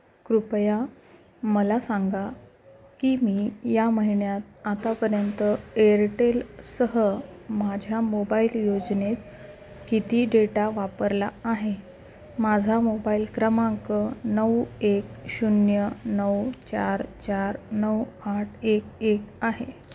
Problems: constant background noise